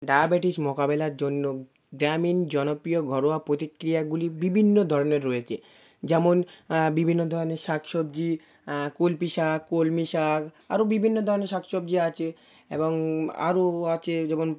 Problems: background sounds at intervals